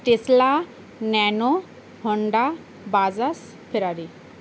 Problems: constant background noise